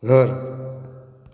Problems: low volume